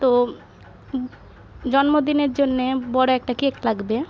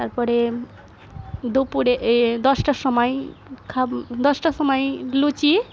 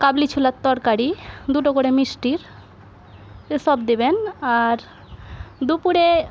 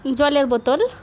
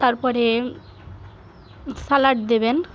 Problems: none marked